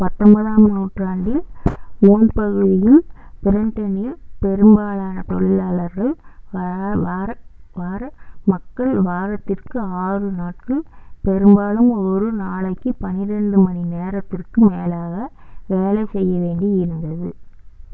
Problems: constant background noise